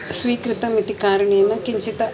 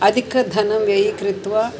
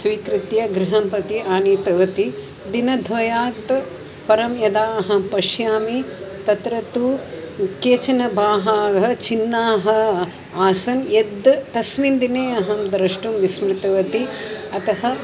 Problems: constant background noise